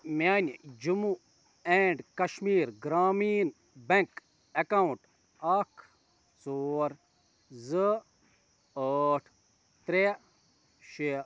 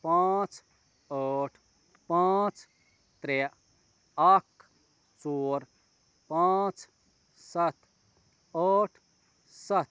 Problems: none marked